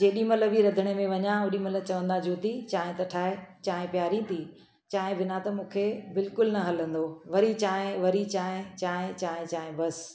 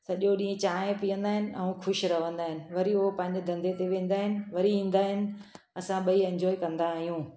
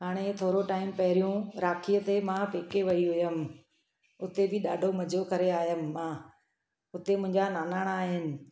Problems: constant background noise